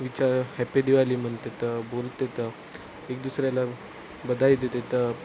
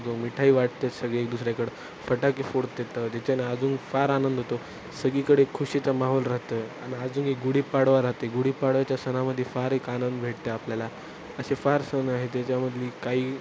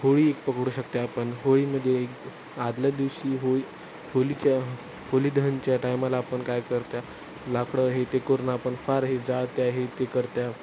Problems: none marked